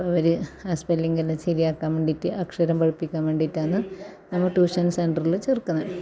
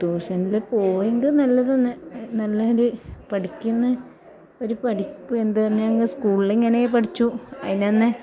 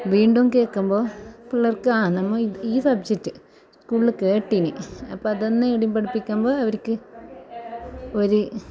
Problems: background conversations at intervals